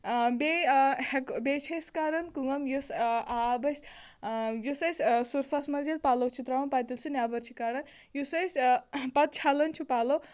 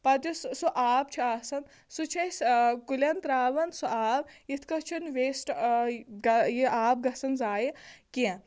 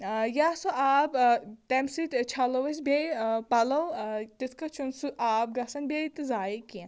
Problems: constant background noise